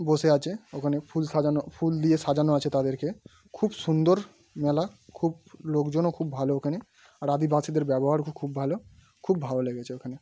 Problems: background sounds at intervals